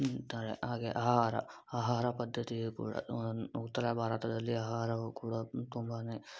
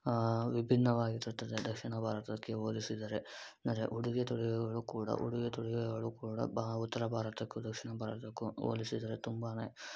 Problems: low volume